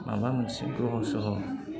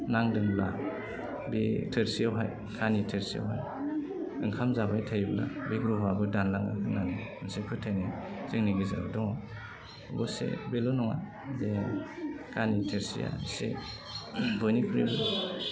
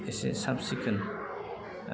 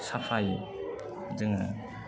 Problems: low volume